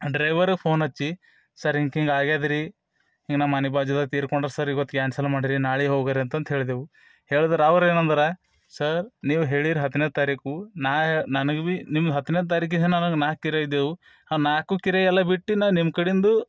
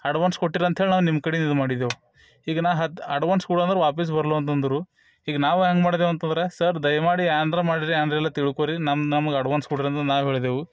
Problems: none marked